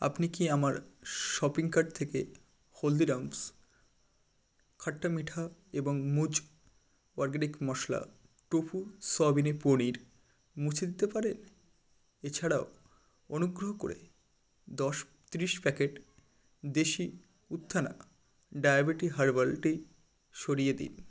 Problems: constant background noise